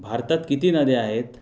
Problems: none marked